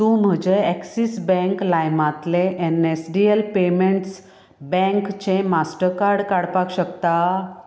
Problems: background conversations at intervals